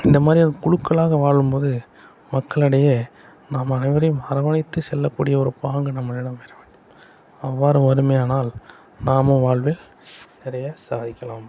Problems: background sounds at intervals